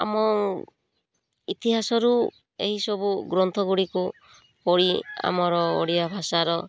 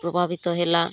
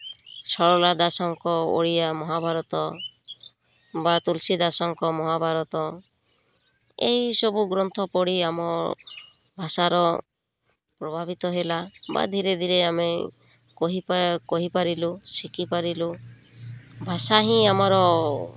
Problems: none marked